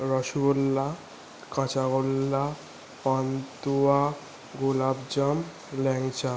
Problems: constant background noise